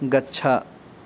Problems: none marked